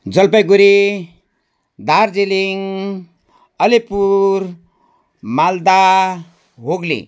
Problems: none marked